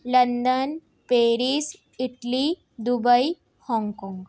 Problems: background sounds at intervals